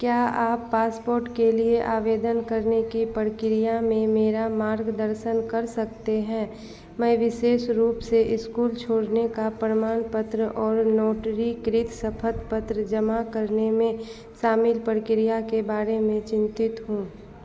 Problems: constant background noise